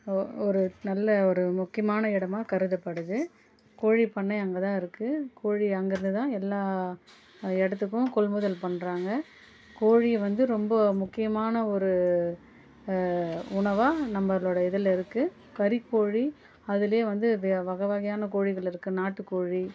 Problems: constant background noise, low volume